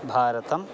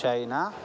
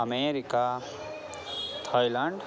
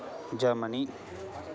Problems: constant background noise, continuous background conversations